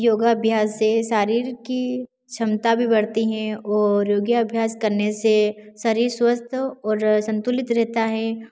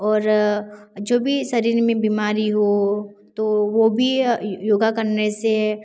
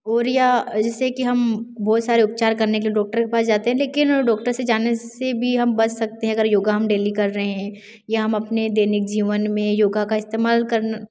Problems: constant background noise